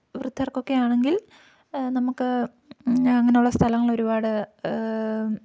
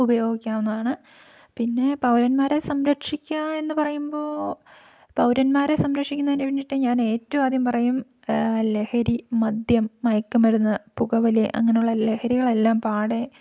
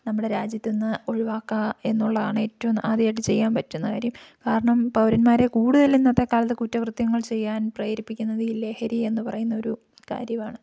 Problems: none marked